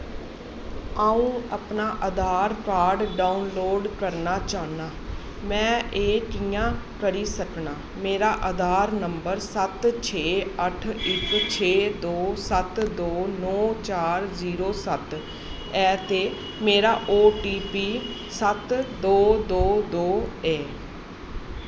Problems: constant background noise